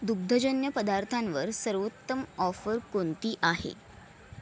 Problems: none marked